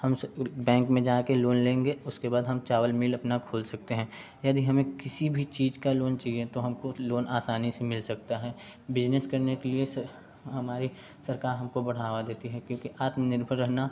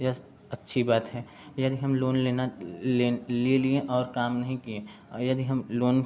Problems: background sounds at intervals, continuous background conversations